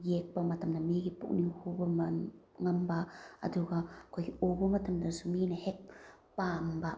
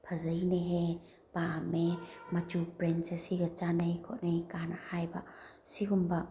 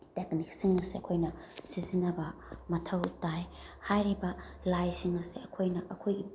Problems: none marked